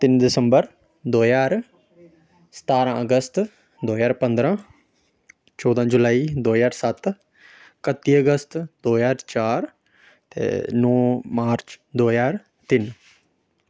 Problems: background sounds at intervals